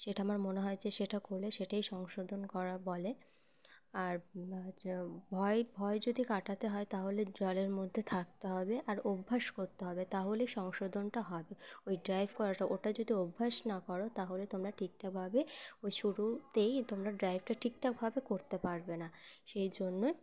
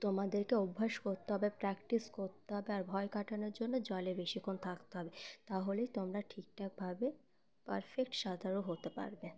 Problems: constant background noise, continuous background conversations